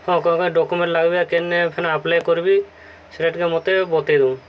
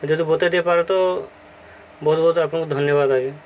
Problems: constant background noise